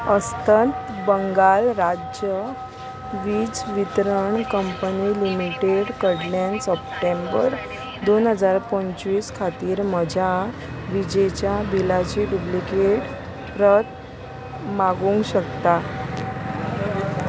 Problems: constant background noise